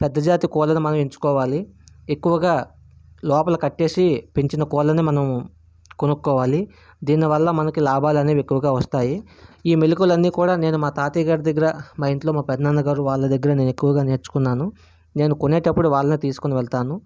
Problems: none marked